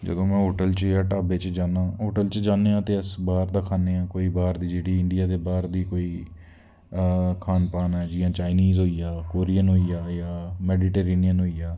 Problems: constant background noise